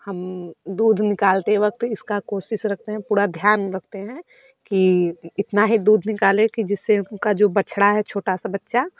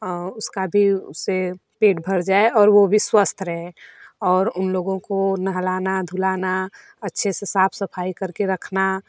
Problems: none marked